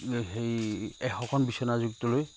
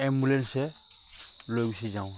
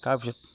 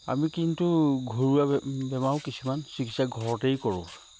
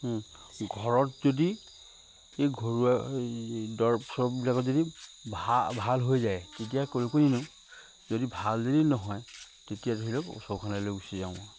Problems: constant background noise